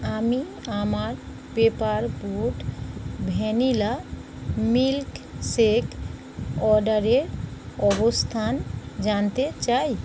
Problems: constant background noise